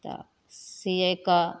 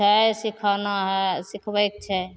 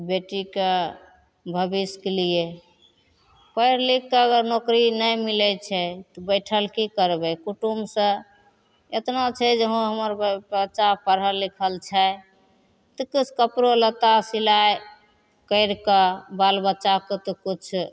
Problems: none marked